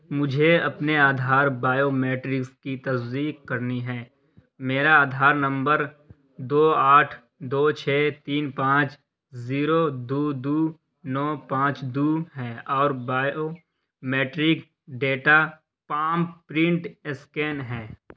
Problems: background sounds at intervals